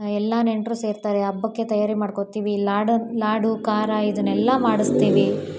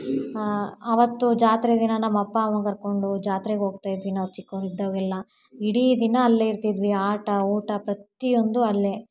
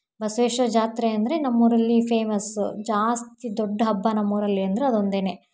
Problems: background sounds at intervals